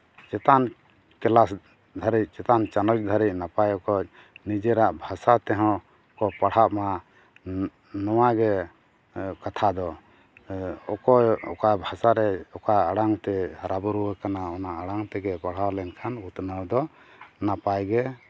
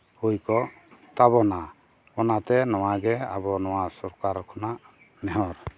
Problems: none marked